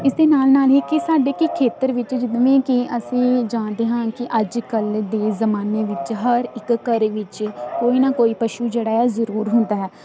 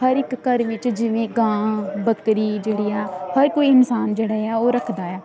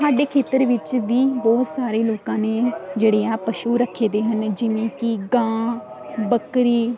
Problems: constant background noise